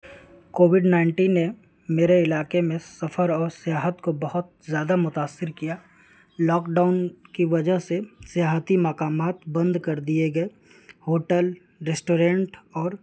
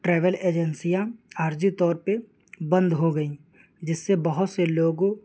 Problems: constant background noise